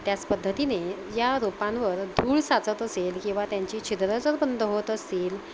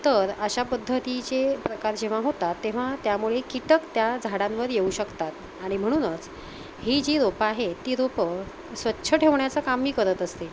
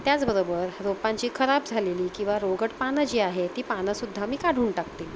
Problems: constant background noise